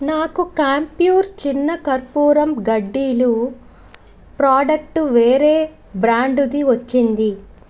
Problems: constant background noise